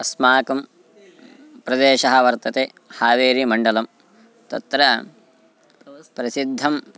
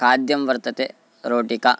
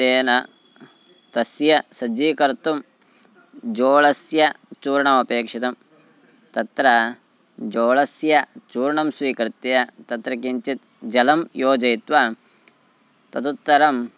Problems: background sounds at intervals, background conversations at intervals